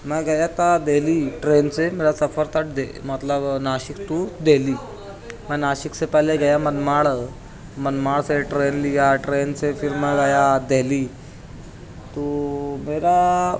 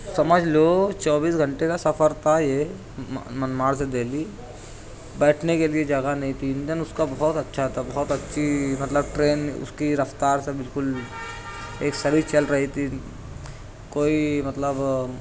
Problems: constant background noise, continuous background conversations